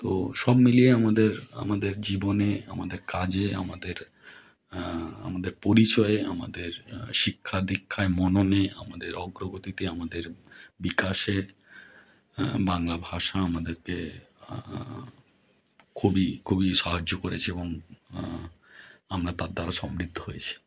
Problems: background conversations at intervals